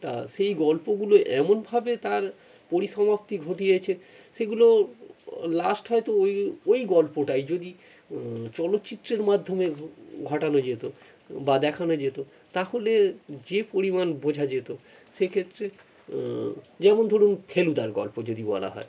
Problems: none marked